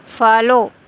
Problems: none marked